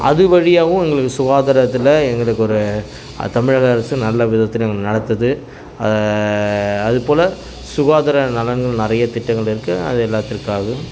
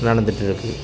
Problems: constant background noise